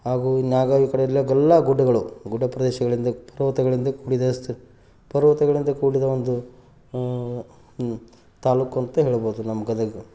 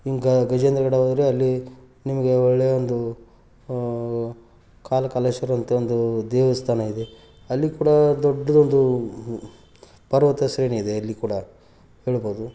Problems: background sounds at intervals